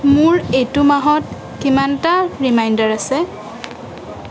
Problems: constant background noise